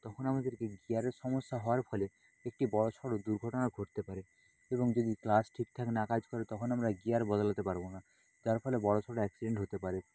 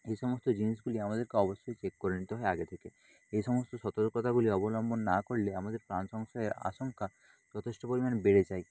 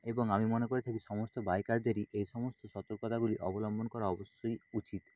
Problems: constant background noise